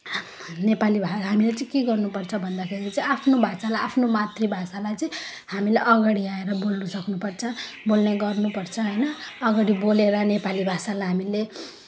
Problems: none marked